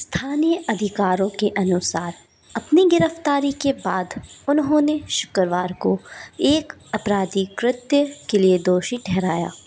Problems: background sounds at intervals